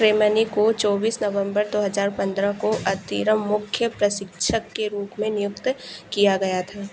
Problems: constant background noise